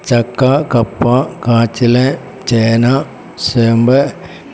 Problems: none marked